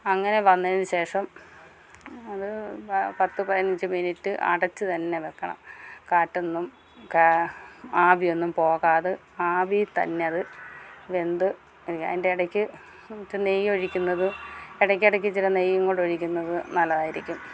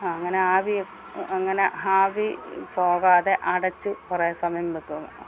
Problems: none marked